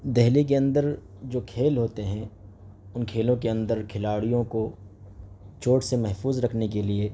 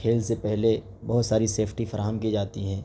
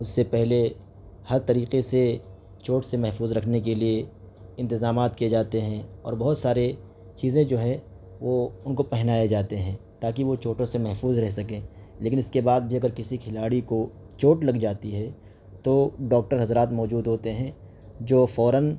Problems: background sounds at intervals